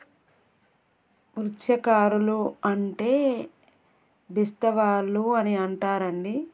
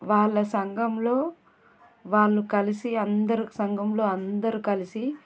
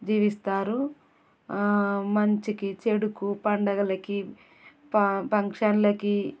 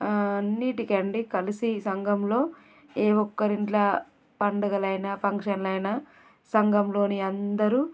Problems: background sounds at intervals